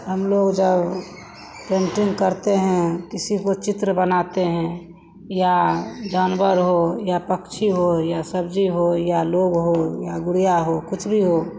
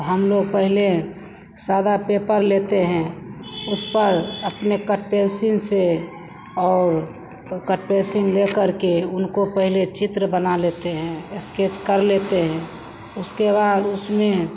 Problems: constant background noise, background conversations at intervals